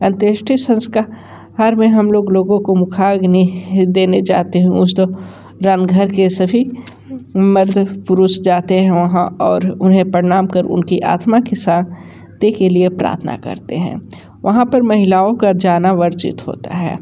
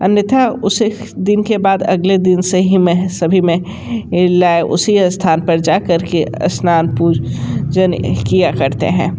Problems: constant background noise